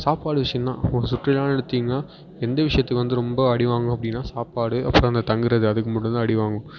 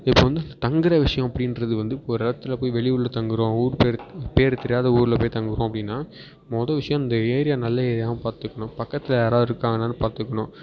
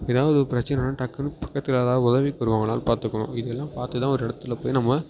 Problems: background sounds at intervals